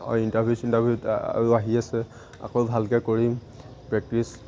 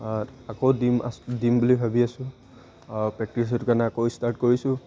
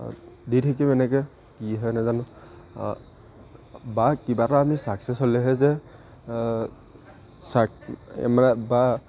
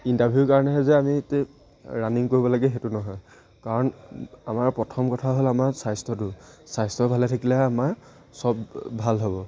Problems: none marked